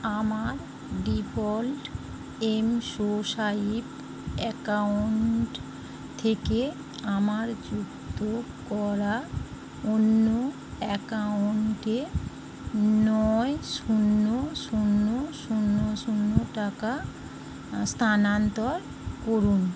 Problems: constant background noise